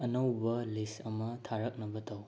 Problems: constant background noise